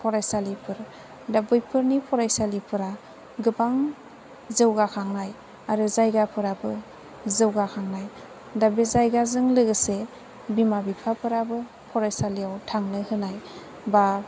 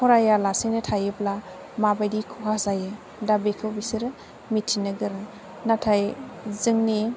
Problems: low volume